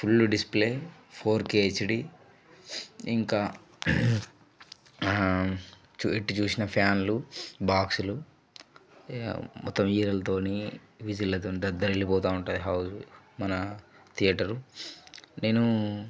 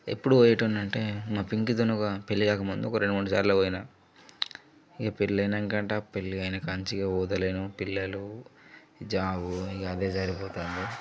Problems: low volume